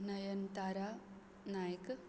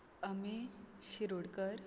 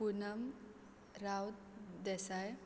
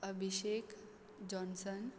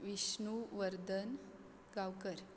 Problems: background sounds at intervals